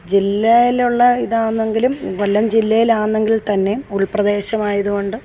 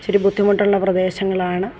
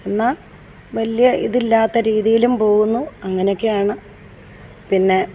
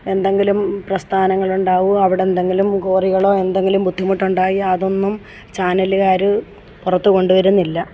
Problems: background sounds at intervals